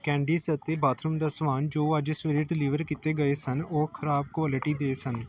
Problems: background conversations at intervals